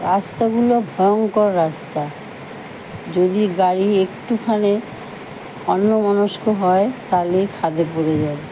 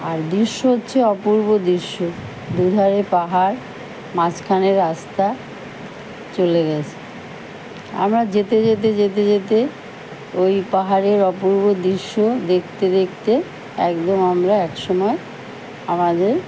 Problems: none marked